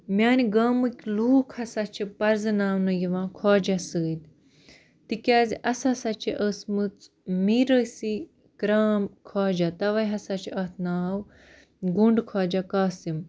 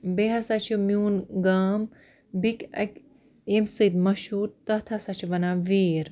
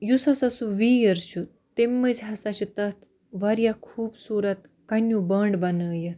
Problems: none marked